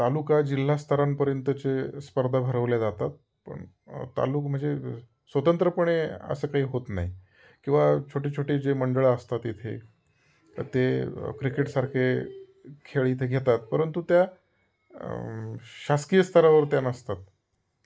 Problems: none marked